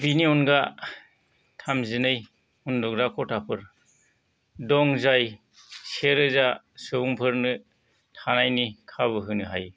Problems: none marked